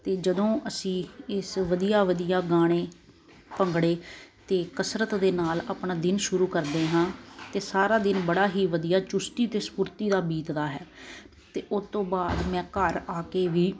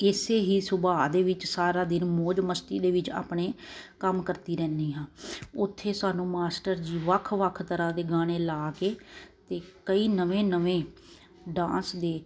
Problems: constant background noise